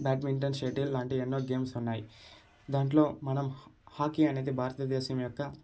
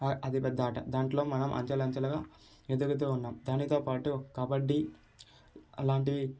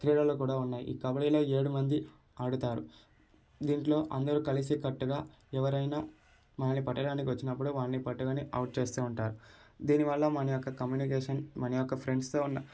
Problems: none marked